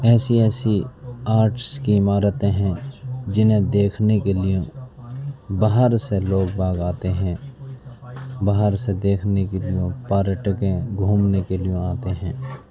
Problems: background sounds at intervals, background conversations at intervals, low volume